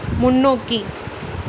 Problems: constant background noise